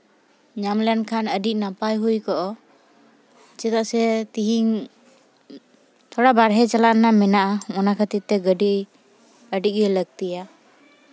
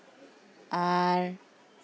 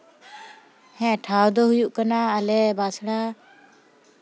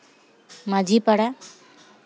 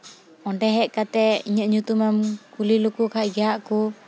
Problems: constant background noise